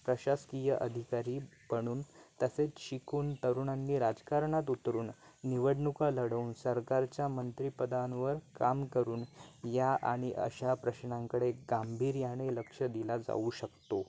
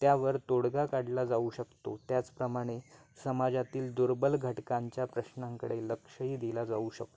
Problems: constant background noise